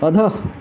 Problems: background sounds at intervals